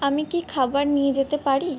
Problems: none marked